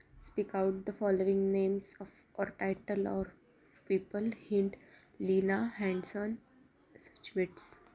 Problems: constant background noise, continuous background conversations